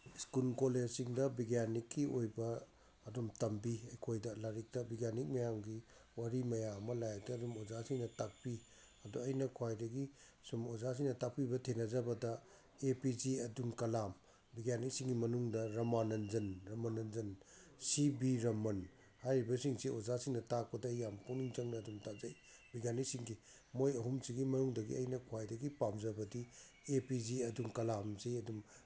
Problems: none marked